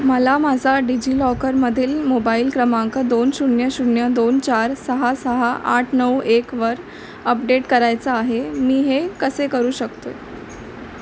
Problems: constant background noise